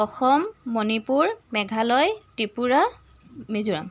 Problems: constant background noise